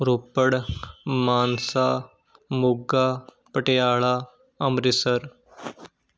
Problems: background sounds at intervals